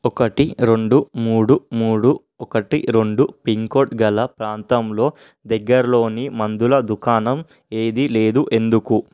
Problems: none marked